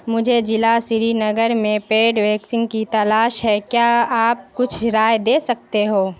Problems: constant background noise